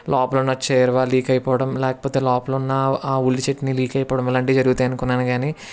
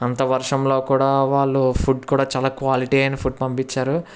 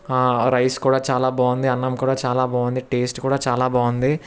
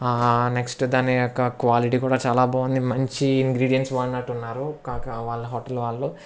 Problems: none marked